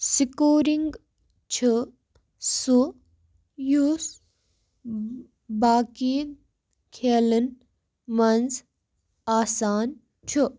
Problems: background sounds at intervals